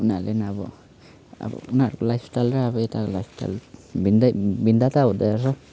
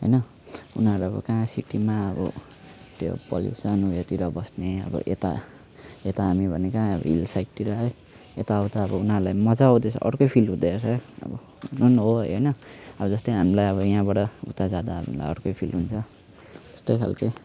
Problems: background sounds at intervals